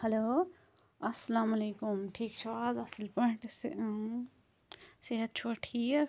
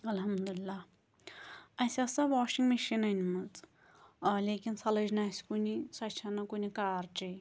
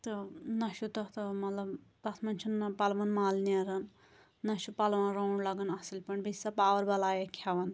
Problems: none marked